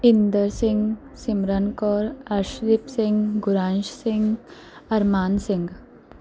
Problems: none marked